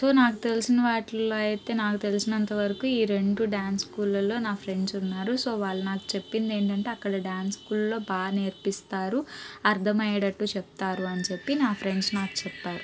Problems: background sounds at intervals, background conversations at intervals